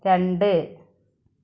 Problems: none marked